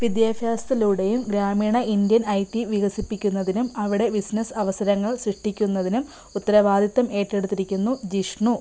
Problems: background sounds at intervals